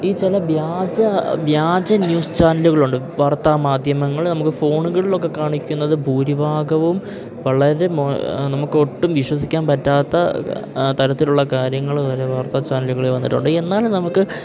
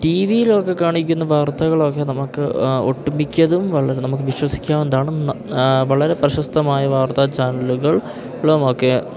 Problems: constant background noise